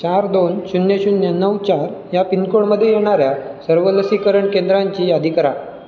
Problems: none marked